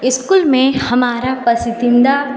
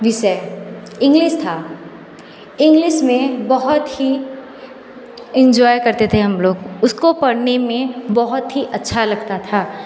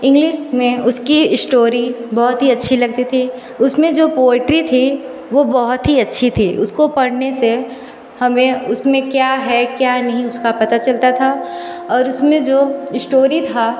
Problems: none marked